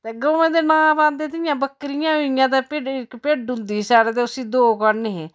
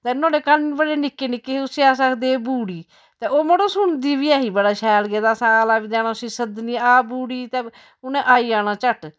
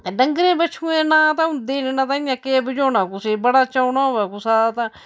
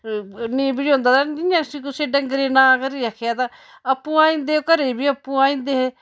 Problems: none marked